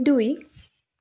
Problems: none marked